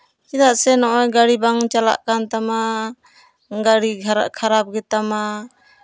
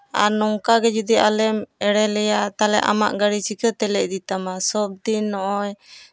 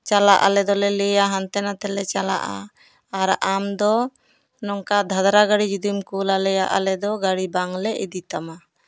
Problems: background sounds at intervals